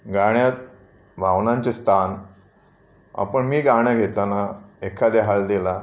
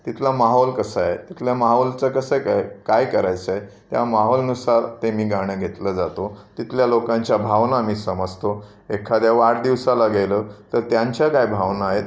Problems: constant background noise